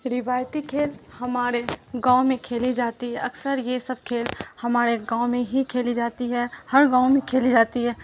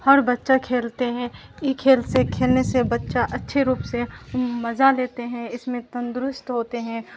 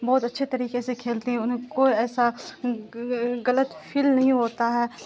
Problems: constant background noise